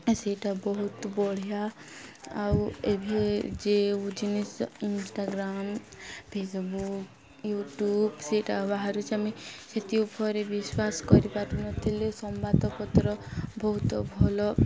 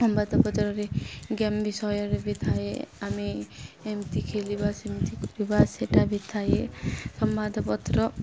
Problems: constant background noise, continuous background conversations